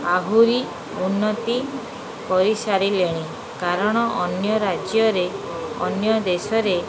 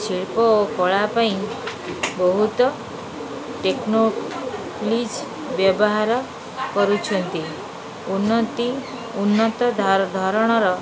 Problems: constant background noise